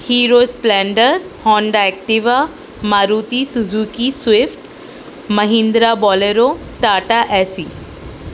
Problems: constant background noise